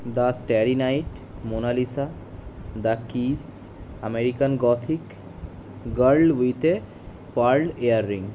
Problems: constant background noise